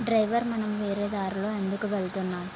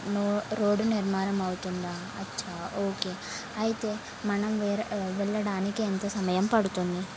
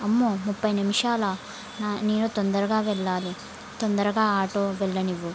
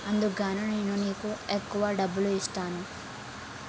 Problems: constant background noise